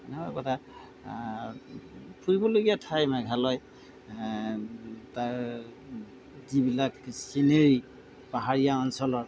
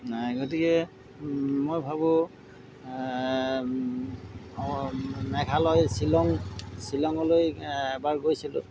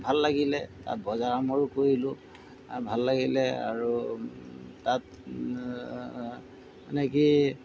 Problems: background sounds at intervals